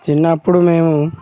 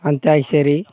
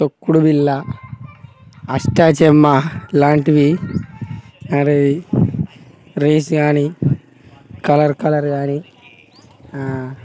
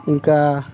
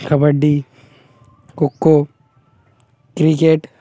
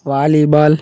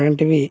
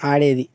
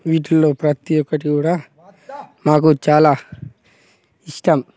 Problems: background sounds at intervals, background conversations at intervals